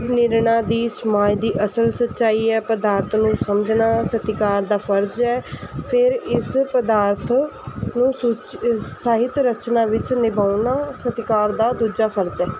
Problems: constant background noise